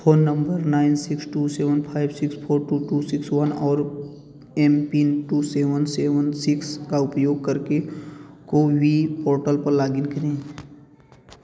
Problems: background sounds at intervals